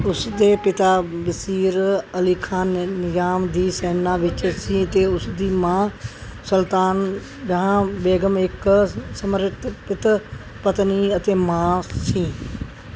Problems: constant background noise